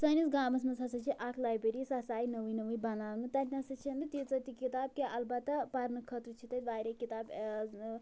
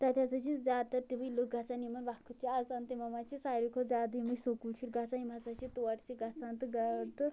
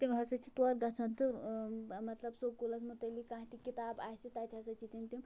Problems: low volume